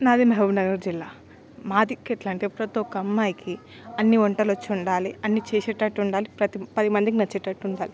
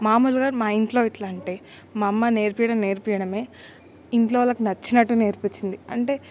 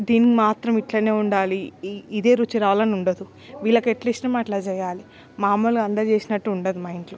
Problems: constant background noise, background conversations at intervals